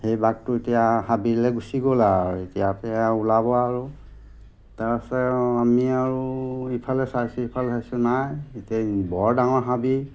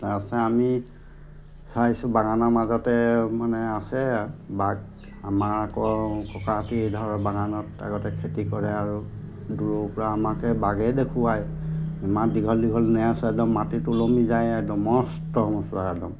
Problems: constant background noise